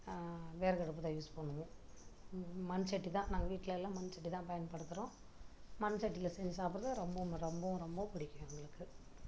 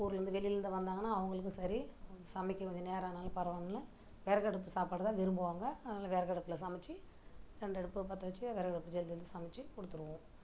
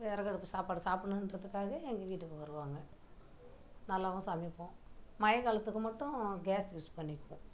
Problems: background sounds at intervals, low volume